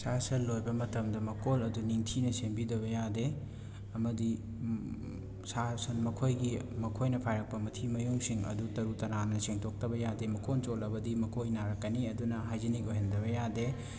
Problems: constant background noise, continuous background conversations